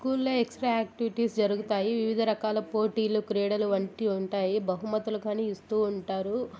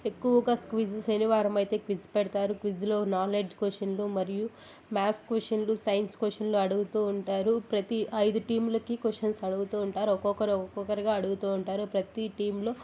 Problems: constant background noise, background conversations at intervals